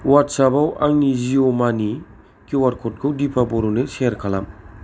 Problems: none marked